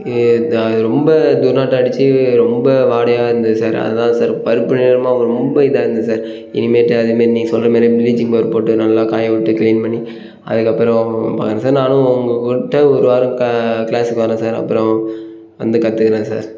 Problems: background sounds at intervals